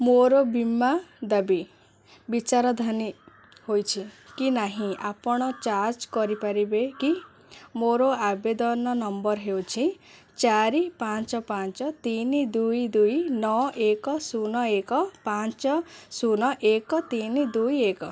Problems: none marked